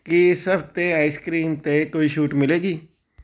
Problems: background sounds at intervals